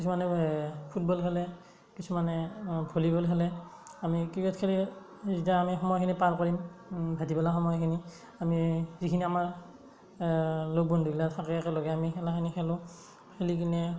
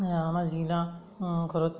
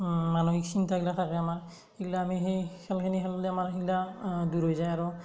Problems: none marked